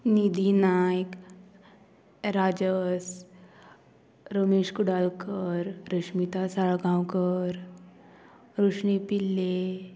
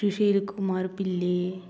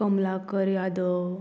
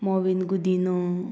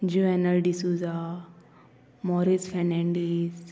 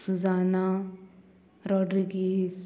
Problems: constant background noise